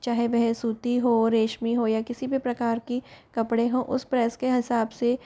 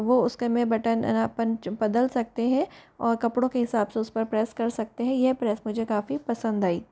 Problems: background conversations at intervals